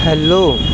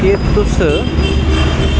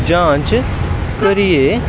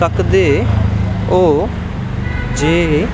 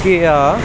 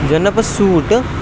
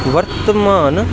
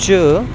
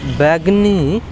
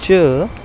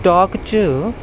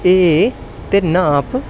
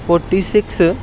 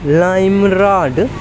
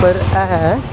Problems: constant background noise